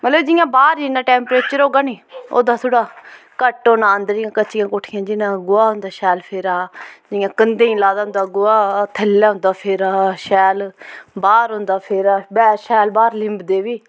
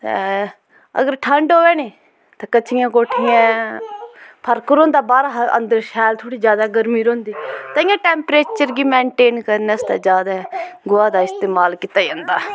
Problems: background sounds at intervals